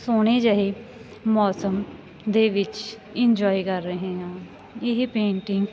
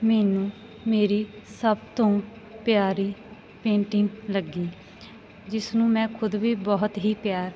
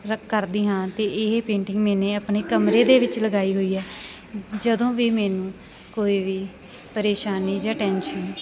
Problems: continuous background conversations